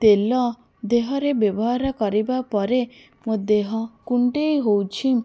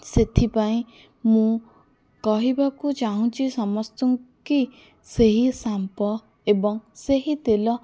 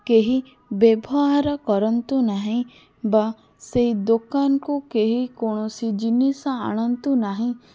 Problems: none marked